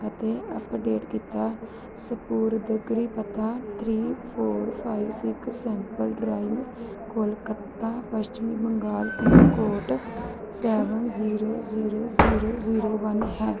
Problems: background sounds at intervals, continuous background conversations